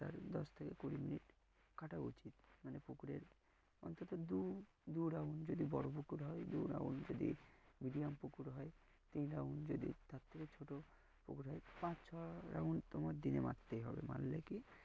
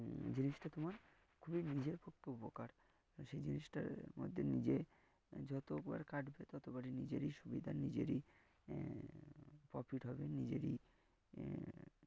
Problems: low volume